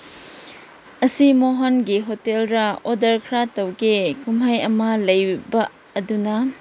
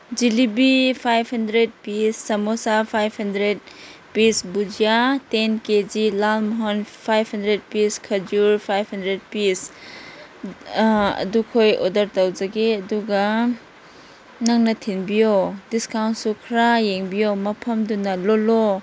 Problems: background sounds at intervals